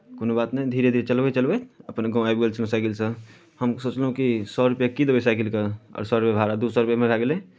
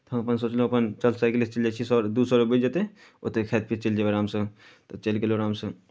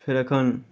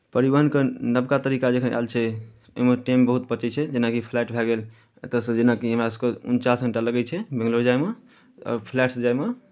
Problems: none marked